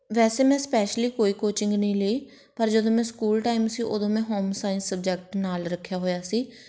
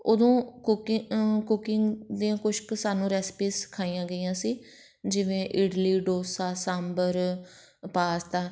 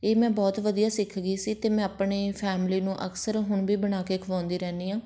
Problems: none marked